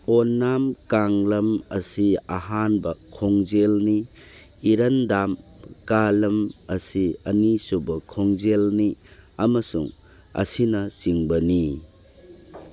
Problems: background sounds at intervals